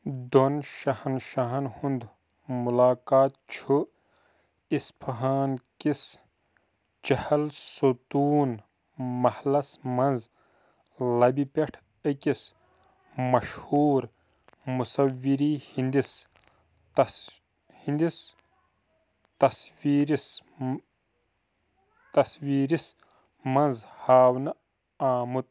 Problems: background sounds at intervals